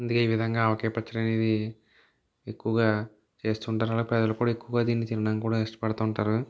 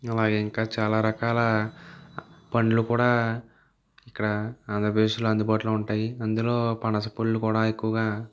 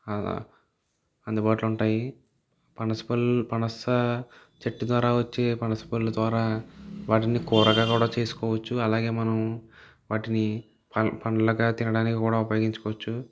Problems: background sounds at intervals